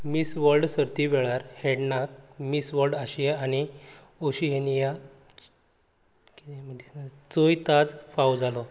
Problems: constant background noise, low volume